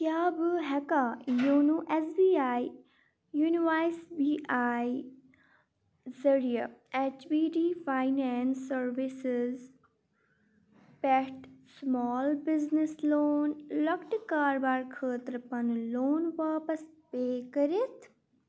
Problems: background sounds at intervals